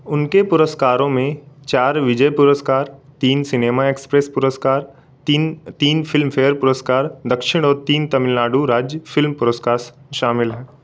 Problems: constant background noise